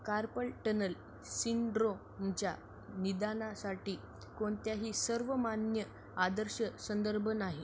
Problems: none marked